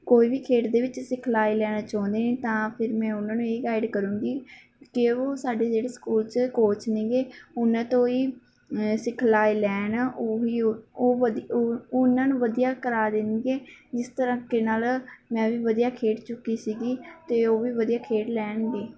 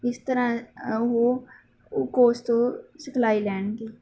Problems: background sounds at intervals